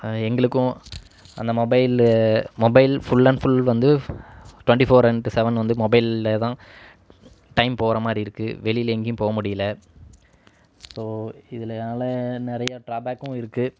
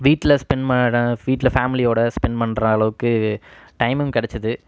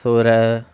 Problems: background sounds at intervals